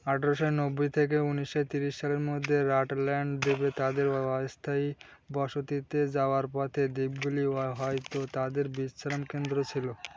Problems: none marked